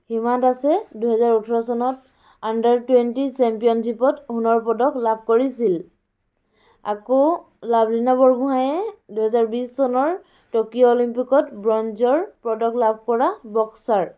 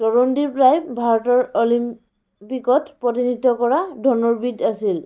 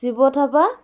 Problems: background sounds at intervals, background conversations at intervals